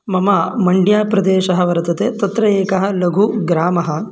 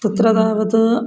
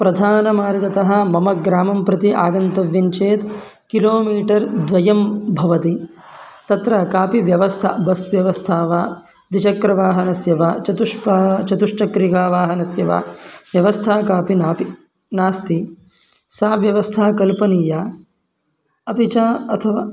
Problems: background sounds at intervals